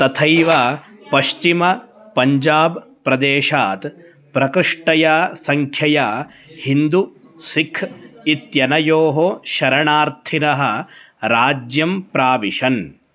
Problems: background conversations at intervals